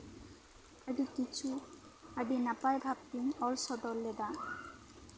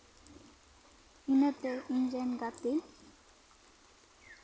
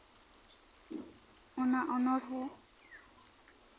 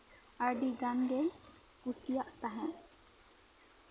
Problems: background sounds at intervals